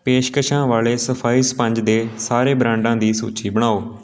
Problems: background conversations at intervals